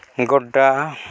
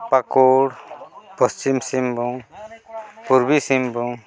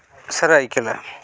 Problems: continuous background conversations